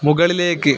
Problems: constant background noise